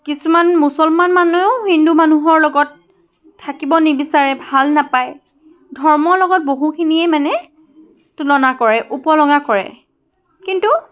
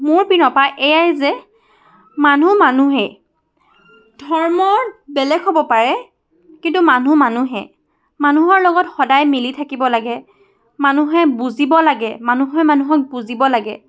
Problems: constant background noise, continuous background conversations